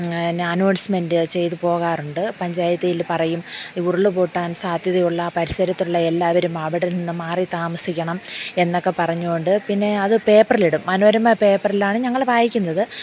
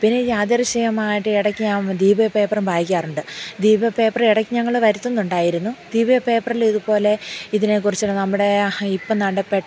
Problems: low volume